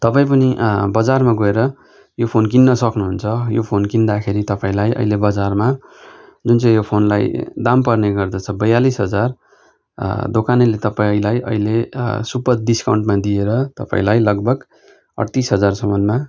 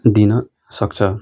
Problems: background sounds at intervals